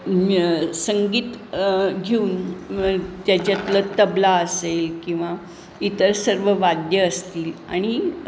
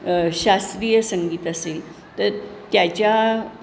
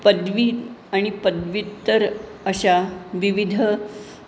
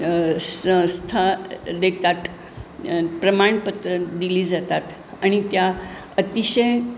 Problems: constant background noise, background conversations at intervals